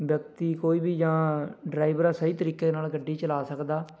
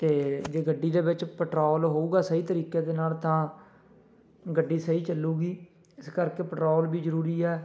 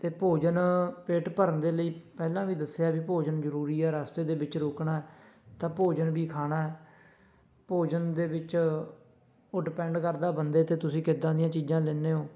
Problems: background sounds at intervals, continuous background conversations